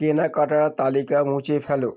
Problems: background sounds at intervals